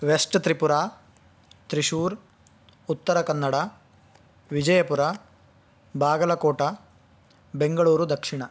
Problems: background sounds at intervals